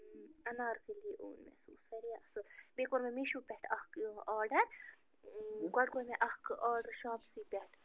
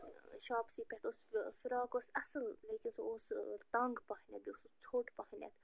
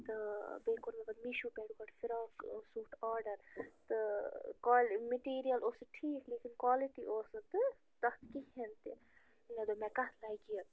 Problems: constant background noise, low volume